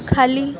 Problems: constant background noise, continuous background conversations